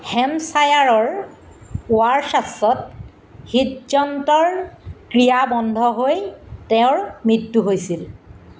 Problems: none marked